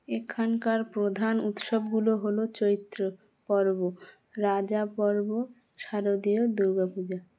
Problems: none marked